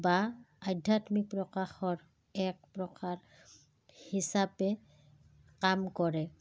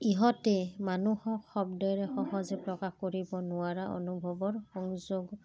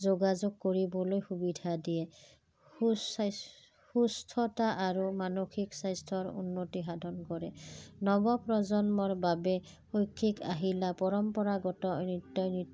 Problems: background sounds at intervals, background conversations at intervals